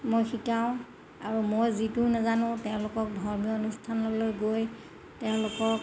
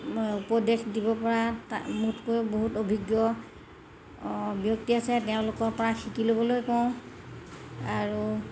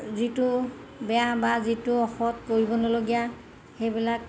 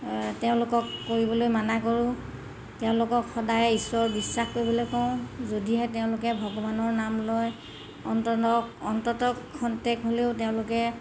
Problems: constant background noise